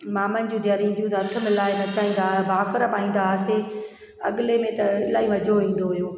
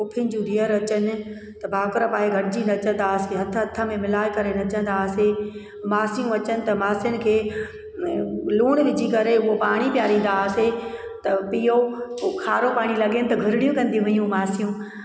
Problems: constant background noise, echo